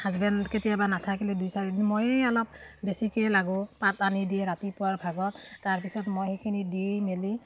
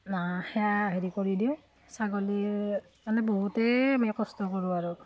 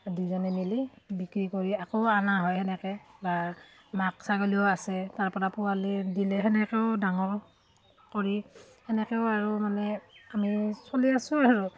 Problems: none marked